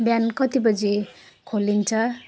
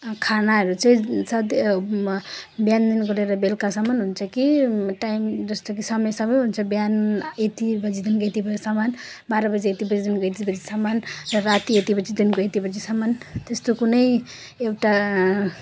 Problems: none marked